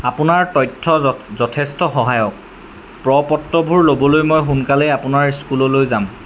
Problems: constant background noise